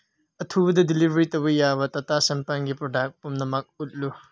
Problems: low volume